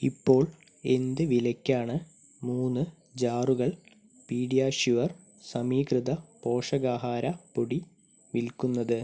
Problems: none marked